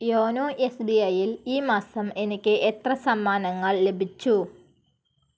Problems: none marked